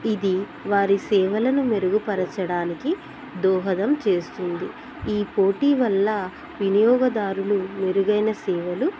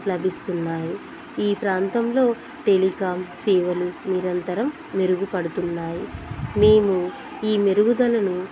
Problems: none marked